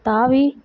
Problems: none marked